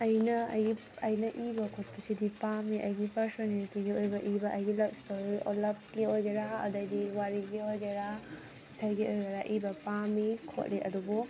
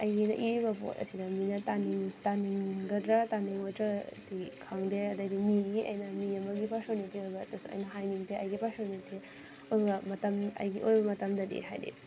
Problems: constant background noise, background conversations at intervals